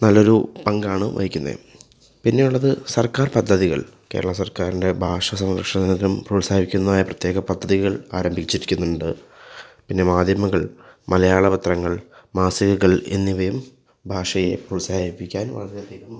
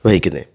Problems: background sounds at intervals